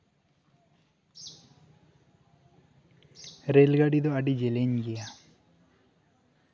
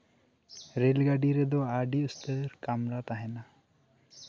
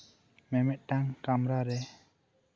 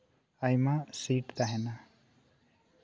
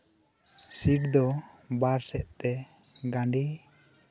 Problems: background conversations at intervals